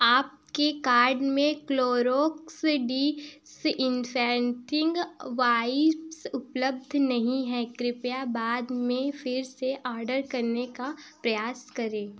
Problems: none marked